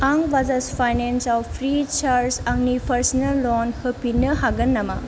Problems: low volume